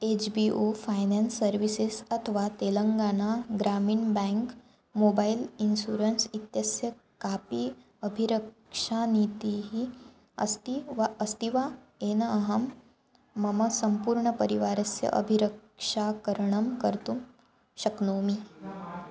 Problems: none marked